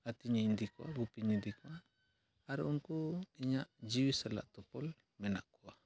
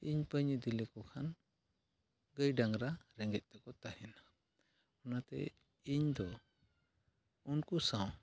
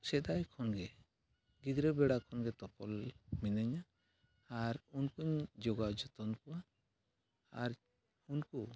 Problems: none marked